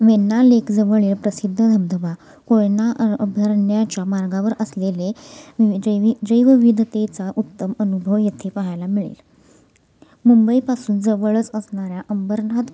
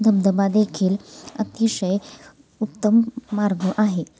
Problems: constant background noise